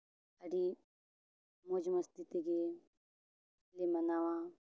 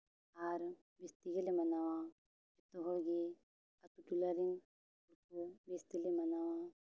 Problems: background sounds at intervals, low volume